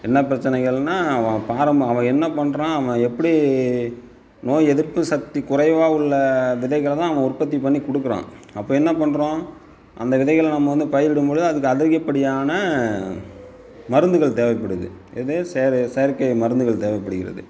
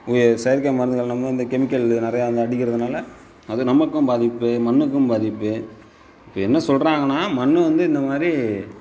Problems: constant background noise